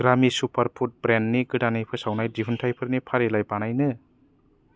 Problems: low volume